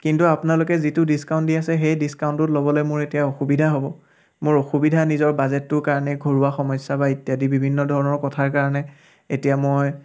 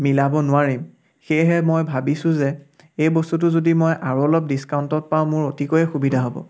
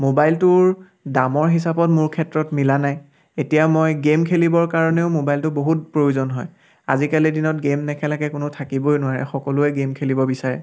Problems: background sounds at intervals, background conversations at intervals